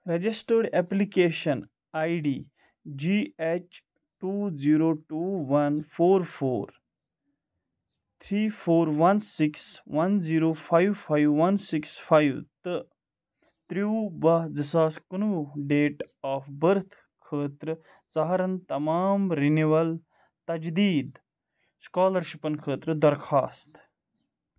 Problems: background sounds at intervals